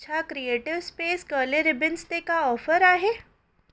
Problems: none marked